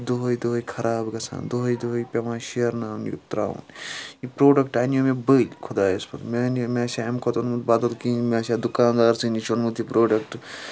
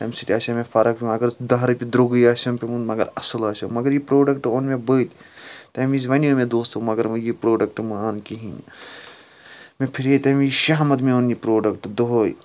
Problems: background sounds at intervals, background conversations at intervals